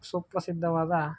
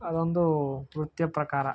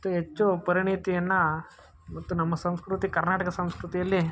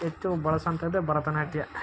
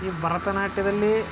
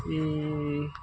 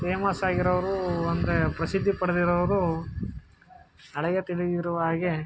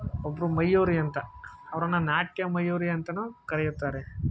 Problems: none marked